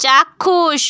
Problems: none marked